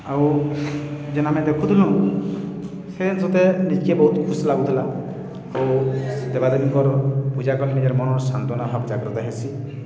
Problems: constant background noise, continuous background conversations